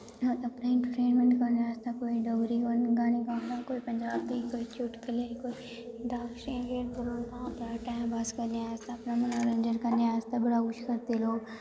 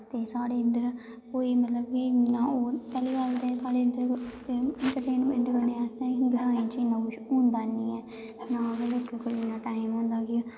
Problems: constant background noise, echo